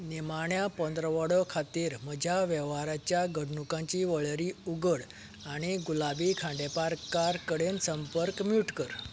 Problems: background sounds at intervals